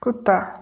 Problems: background sounds at intervals